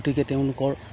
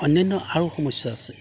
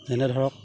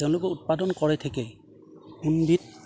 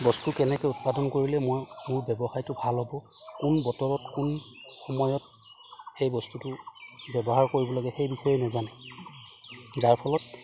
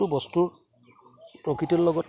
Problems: background sounds at intervals